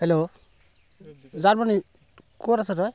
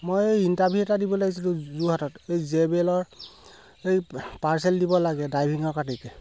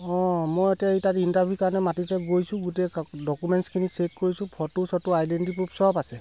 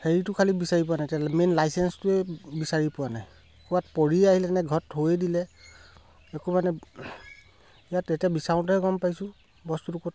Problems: background sounds at intervals